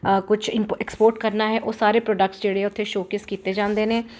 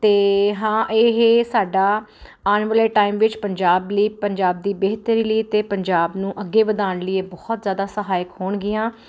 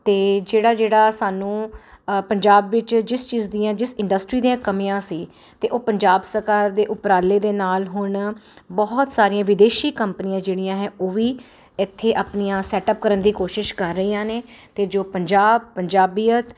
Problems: constant background noise